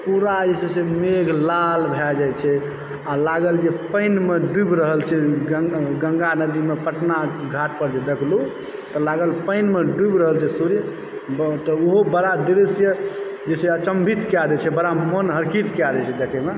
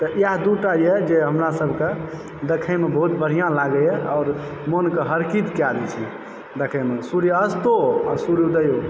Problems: background sounds at intervals